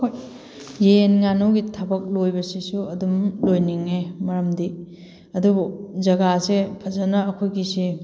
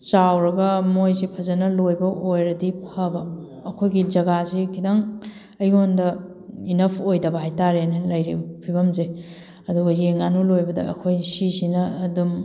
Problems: background sounds at intervals